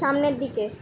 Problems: none marked